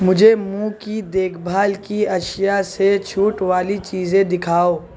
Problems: none marked